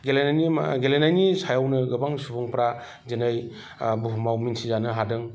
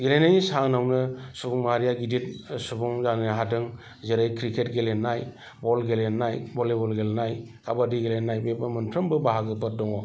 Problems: none marked